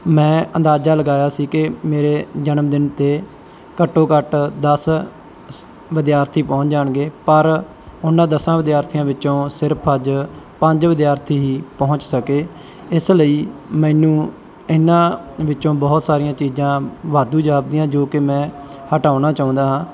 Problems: background sounds at intervals